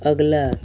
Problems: constant background noise